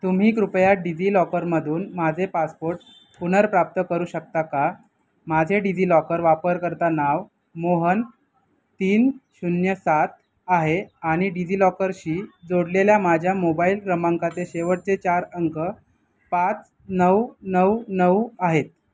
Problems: none marked